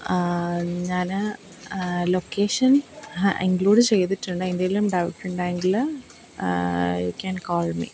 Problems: constant background noise